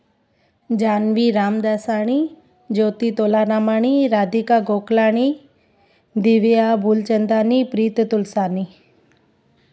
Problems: constant background noise